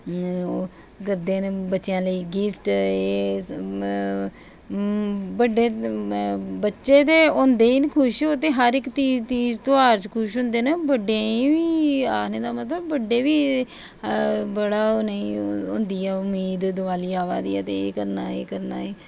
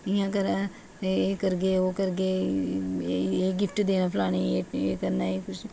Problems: constant background noise